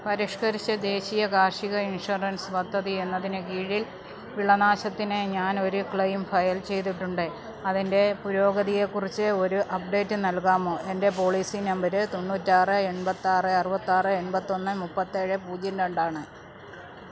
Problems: low volume